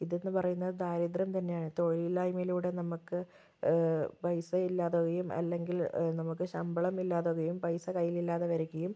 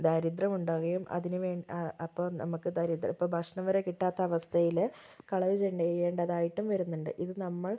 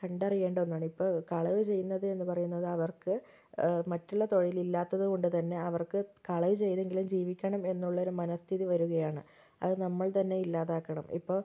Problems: low volume